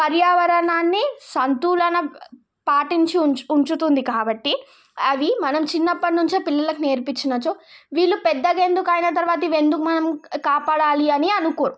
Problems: none marked